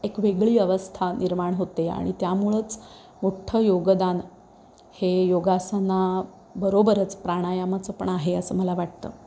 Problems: background sounds at intervals